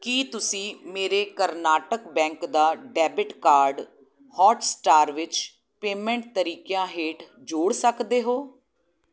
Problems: none marked